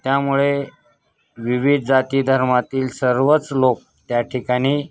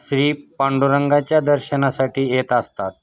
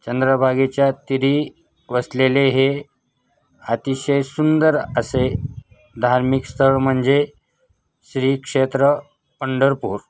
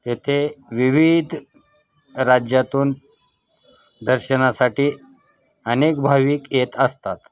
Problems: constant background noise, continuous background conversations